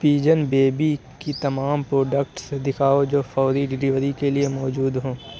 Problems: none marked